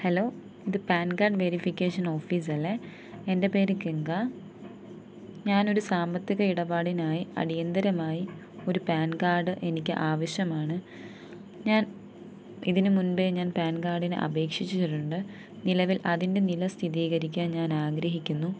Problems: none marked